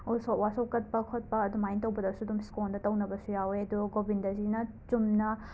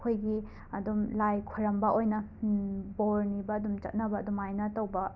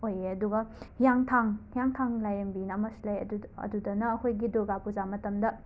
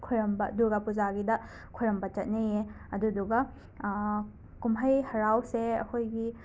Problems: background sounds at intervals